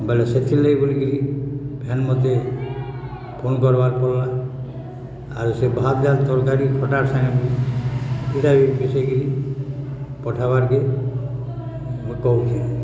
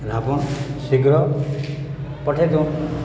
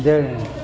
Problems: constant background noise